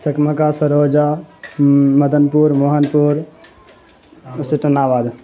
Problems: constant background noise